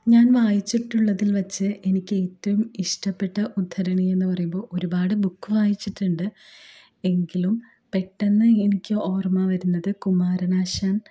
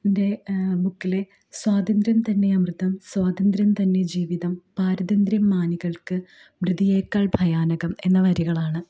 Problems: low volume